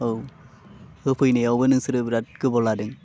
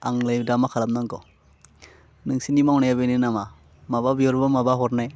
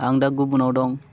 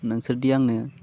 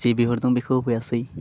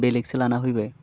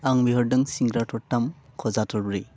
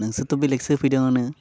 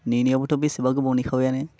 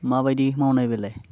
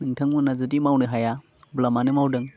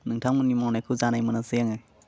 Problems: none marked